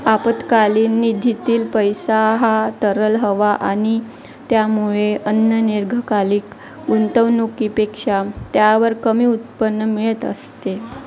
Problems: constant background noise, continuous background conversations